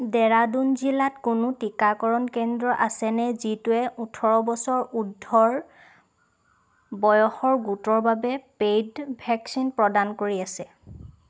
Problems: none marked